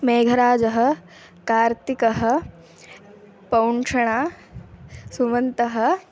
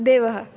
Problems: background sounds at intervals